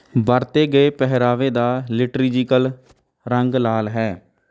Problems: none marked